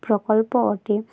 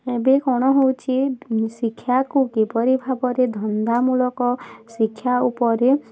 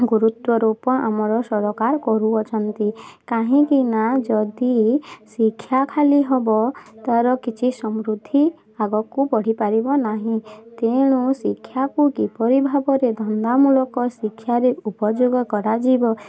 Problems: constant background noise, continuous background conversations